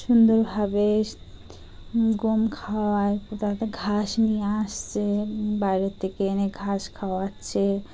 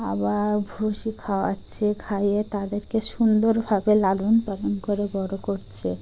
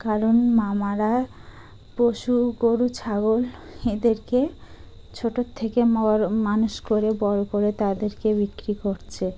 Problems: none marked